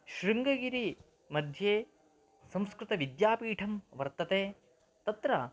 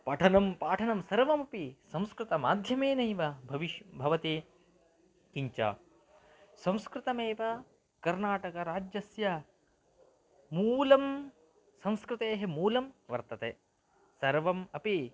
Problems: low volume